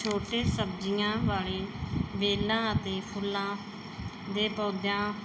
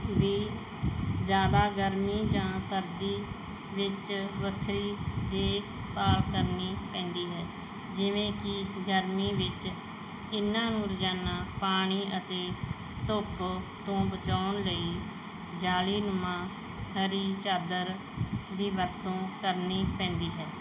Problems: background sounds at intervals